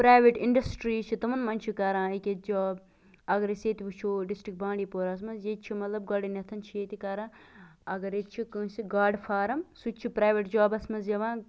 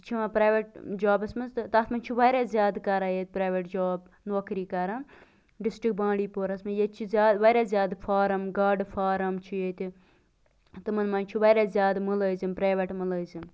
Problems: none marked